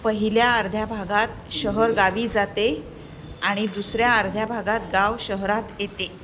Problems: constant background noise, background conversations at intervals